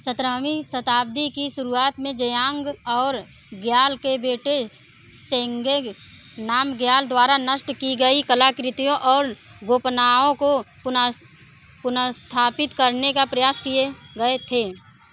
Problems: constant background noise, continuous background conversations